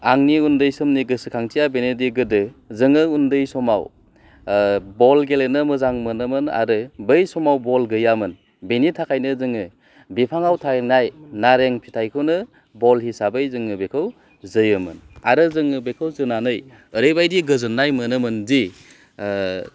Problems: low volume